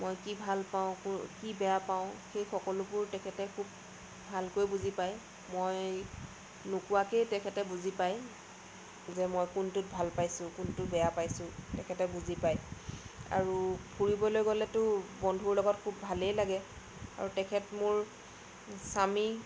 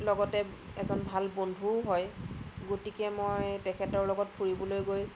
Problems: constant background noise